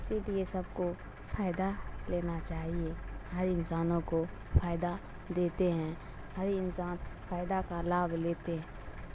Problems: constant background noise